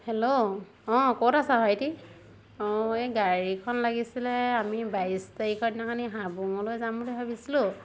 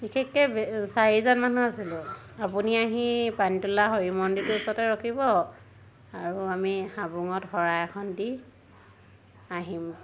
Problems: constant background noise